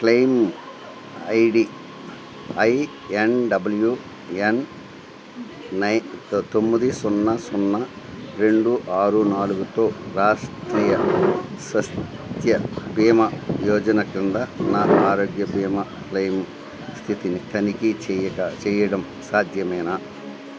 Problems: constant background noise